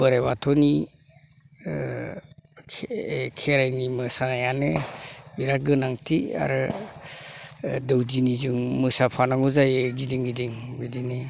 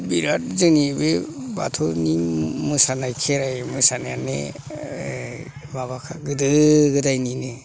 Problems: none marked